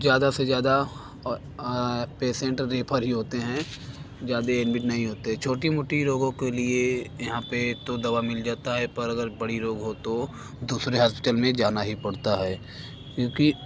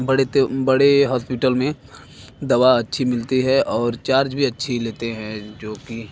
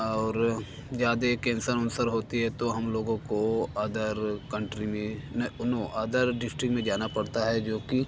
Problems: constant background noise, background conversations at intervals